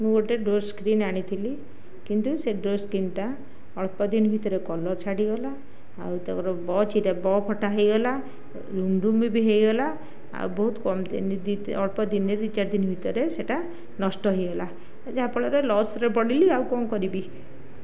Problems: none marked